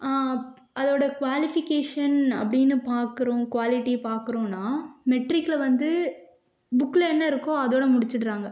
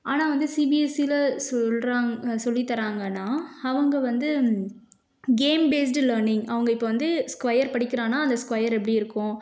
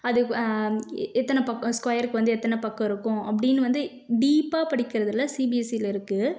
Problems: none marked